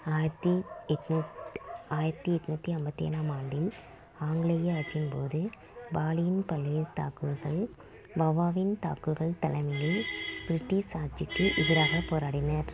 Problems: background sounds at intervals